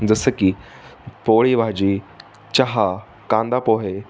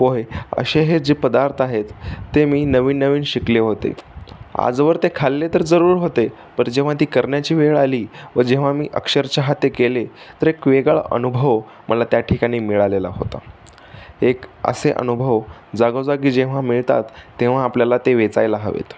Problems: constant background noise